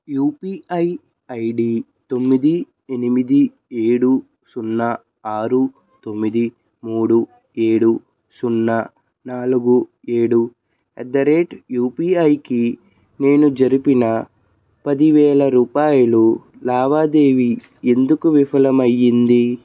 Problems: background conversations at intervals